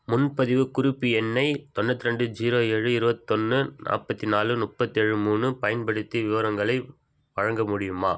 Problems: none marked